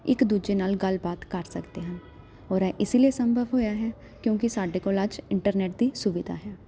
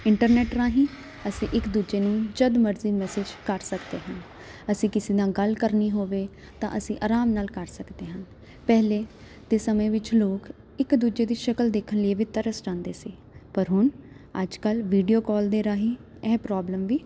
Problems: none marked